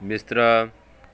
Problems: none marked